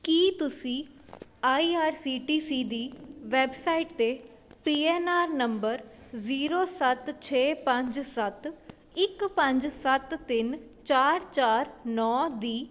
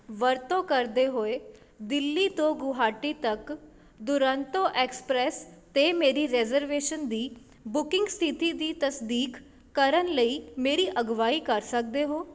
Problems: none marked